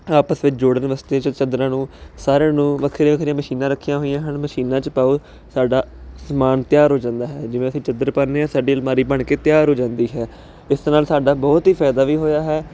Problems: constant background noise